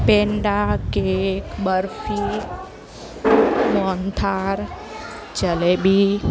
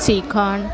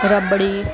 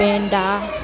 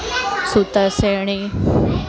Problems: constant background noise, continuous background conversations